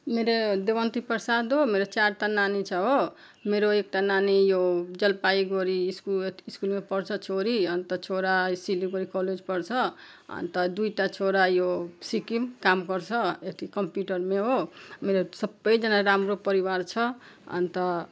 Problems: background sounds at intervals